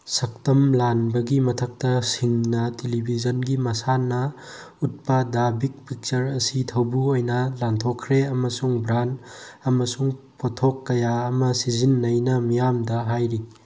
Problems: none marked